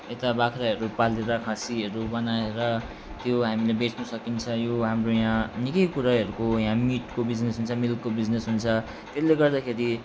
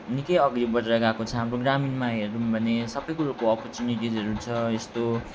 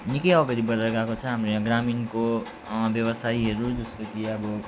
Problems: constant background noise